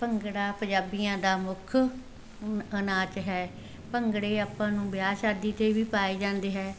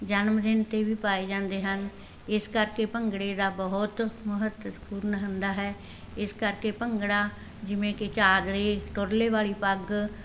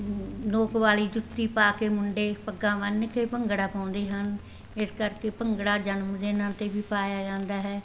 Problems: background sounds at intervals